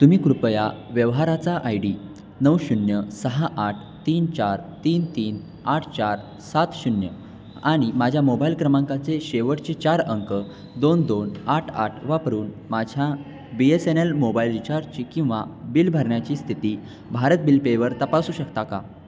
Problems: constant background noise, background conversations at intervals